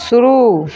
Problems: none marked